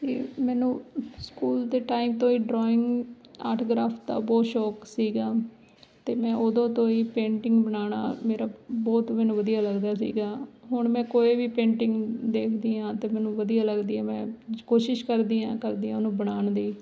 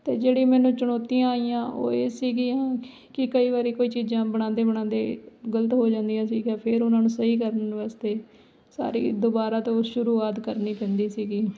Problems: background sounds at intervals